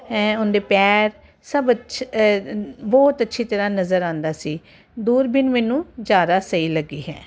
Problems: none marked